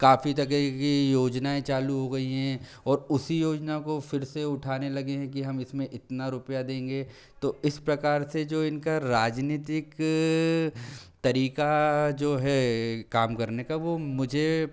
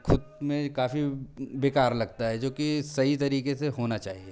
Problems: low volume